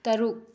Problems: low volume